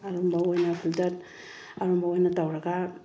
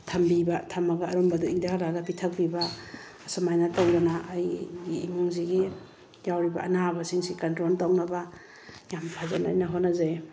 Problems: background sounds at intervals